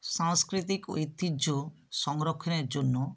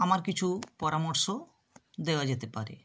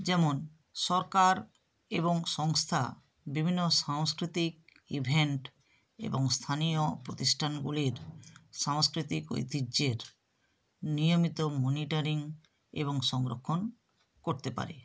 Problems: none marked